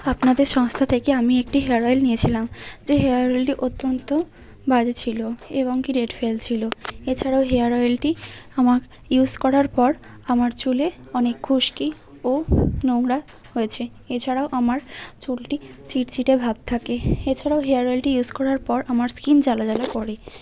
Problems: constant background noise